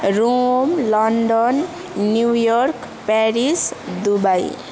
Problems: continuous background conversations